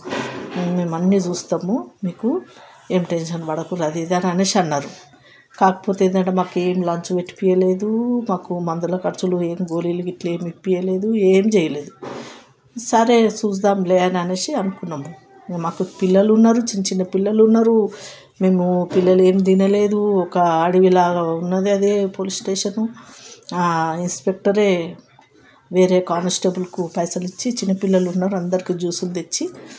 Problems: background sounds at intervals, continuous background conversations